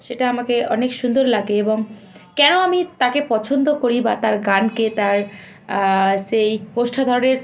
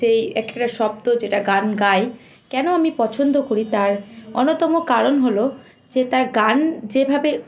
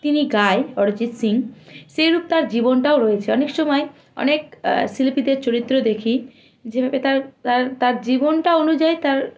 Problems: constant background noise, background conversations at intervals